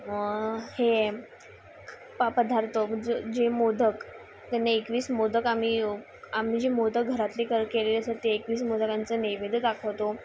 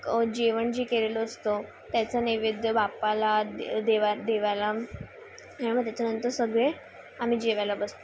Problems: constant background noise, background conversations at intervals